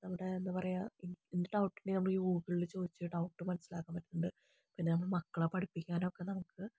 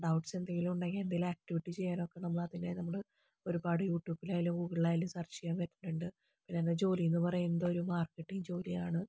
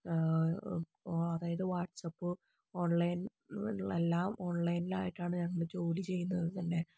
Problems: low volume